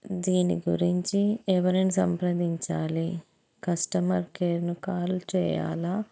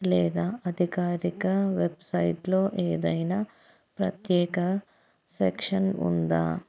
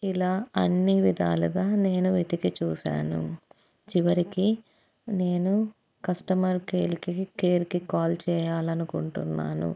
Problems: background sounds at intervals